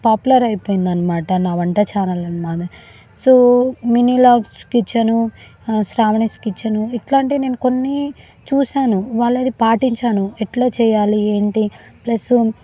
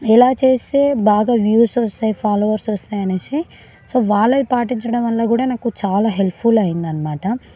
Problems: background conversations at intervals